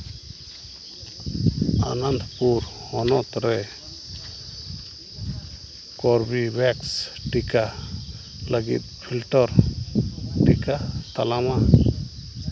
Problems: constant background noise